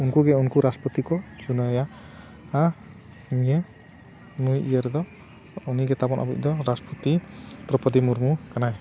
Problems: none marked